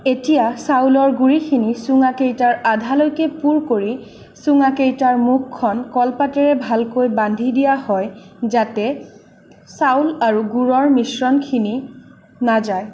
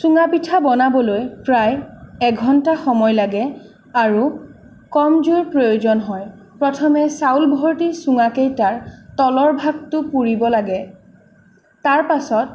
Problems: none marked